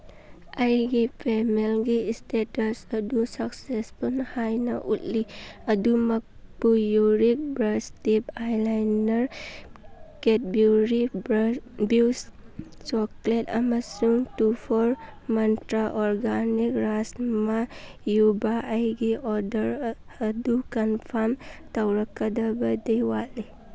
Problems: background sounds at intervals